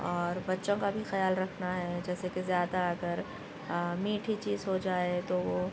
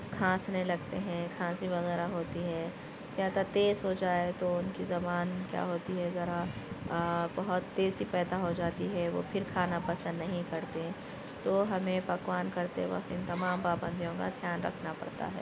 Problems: constant background noise, continuous background conversations